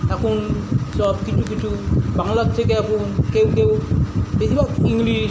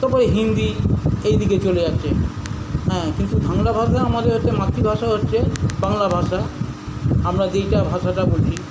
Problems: none marked